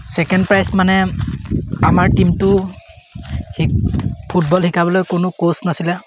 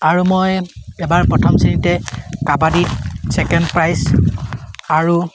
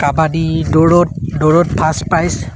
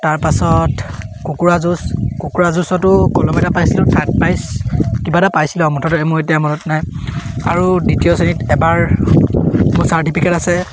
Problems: background sounds at intervals